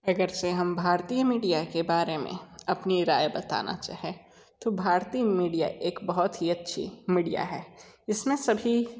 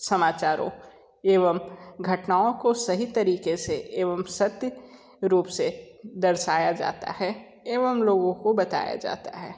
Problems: none marked